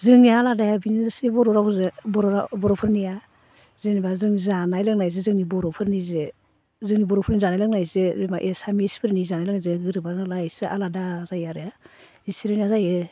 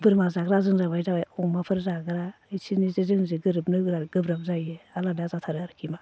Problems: constant background noise